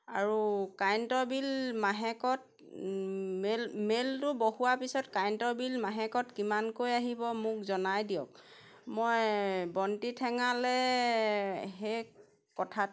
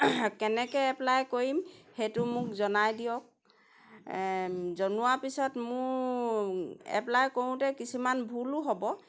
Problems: background sounds at intervals